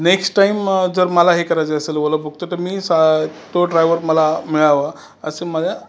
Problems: none marked